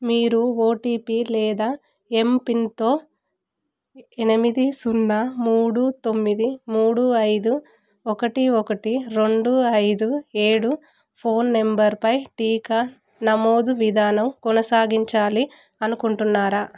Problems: none marked